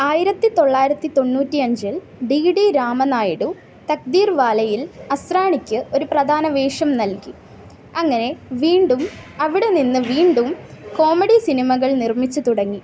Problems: none marked